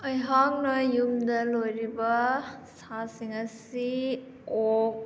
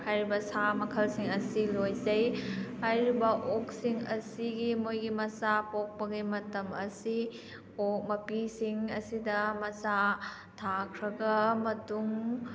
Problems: background conversations at intervals